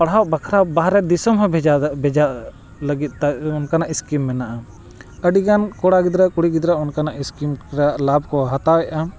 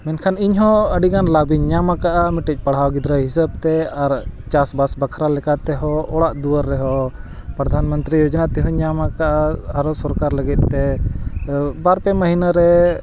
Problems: constant background noise